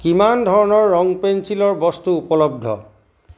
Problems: constant background noise